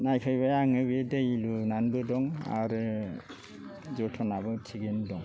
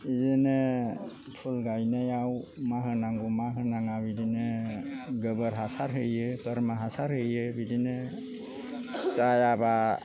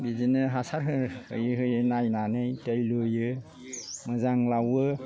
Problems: low volume